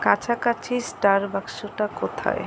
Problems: constant background noise